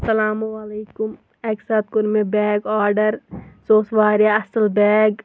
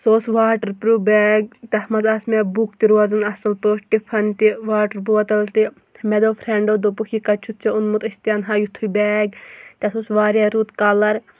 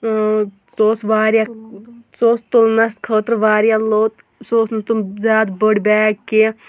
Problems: none marked